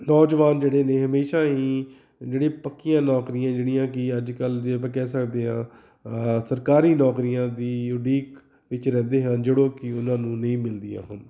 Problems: background sounds at intervals, background conversations at intervals